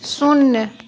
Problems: constant background noise